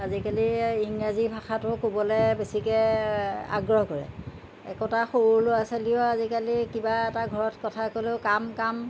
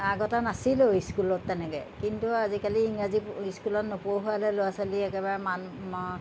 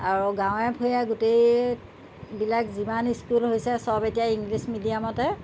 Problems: constant background noise